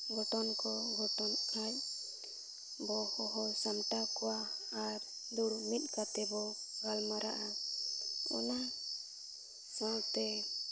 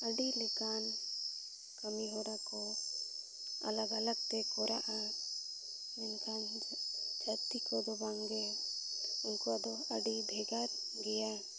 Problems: none marked